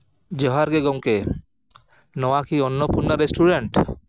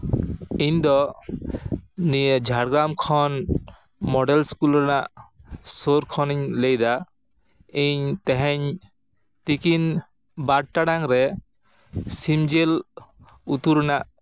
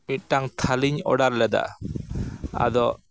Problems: background sounds at intervals